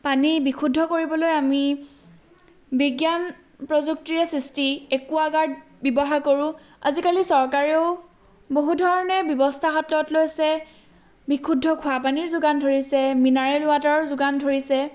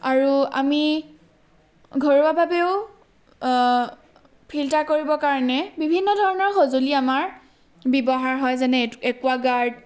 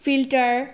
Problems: background sounds at intervals